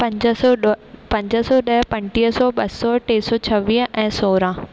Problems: constant background noise, echo